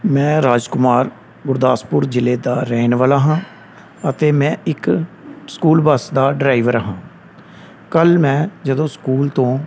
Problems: none marked